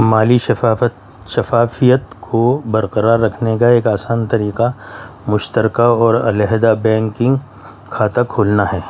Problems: none marked